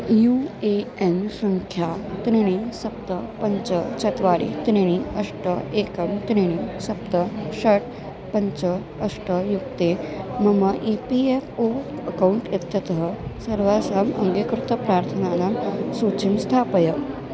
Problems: constant background noise